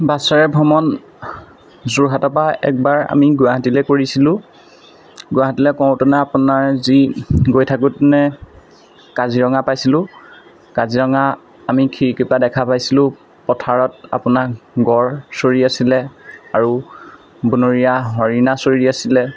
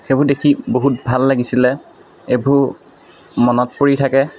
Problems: constant background noise, background conversations at intervals